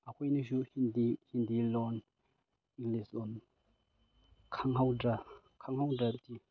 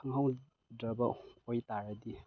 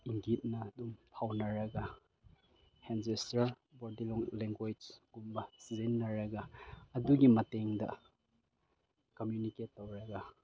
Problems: none marked